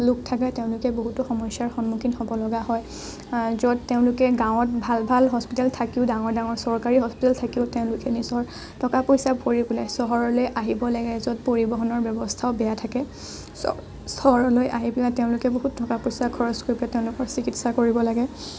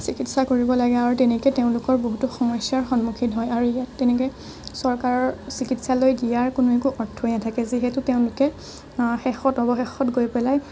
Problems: none marked